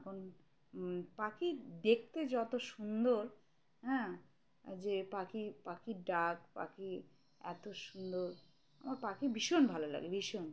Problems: none marked